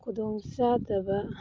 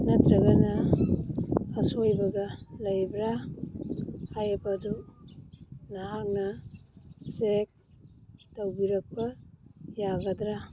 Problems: background sounds at intervals